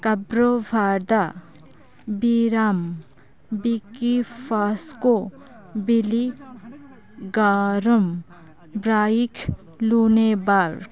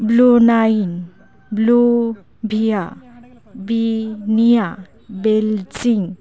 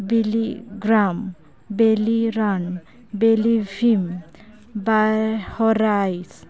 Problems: continuous background conversations